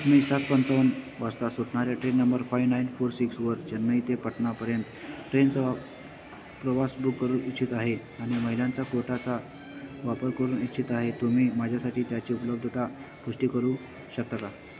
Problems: constant background noise